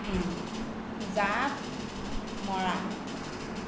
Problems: constant background noise, low volume